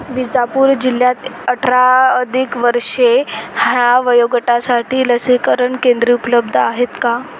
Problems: constant background noise